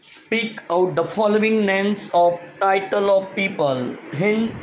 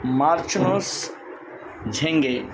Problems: constant background noise